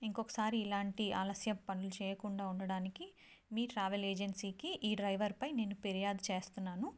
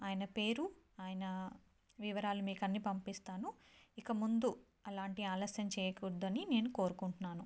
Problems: low volume